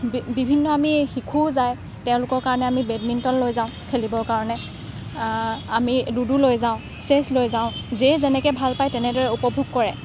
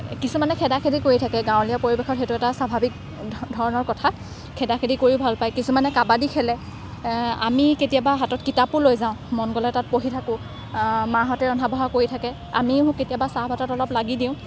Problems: constant background noise